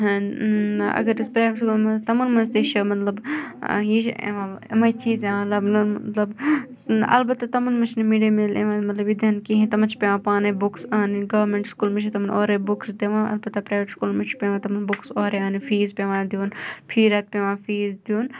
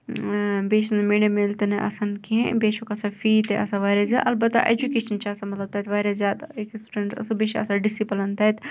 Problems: background conversations at intervals